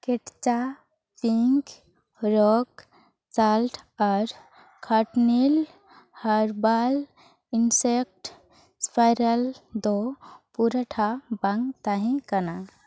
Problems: none marked